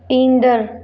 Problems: constant background noise